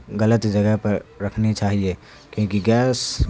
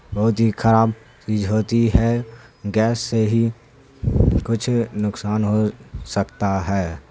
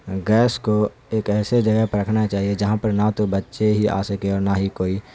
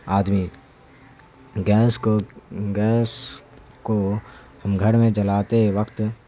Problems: constant background noise